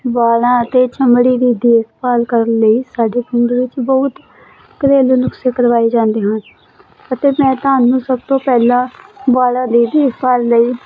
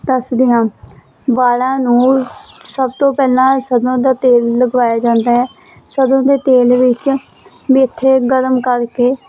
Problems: constant background noise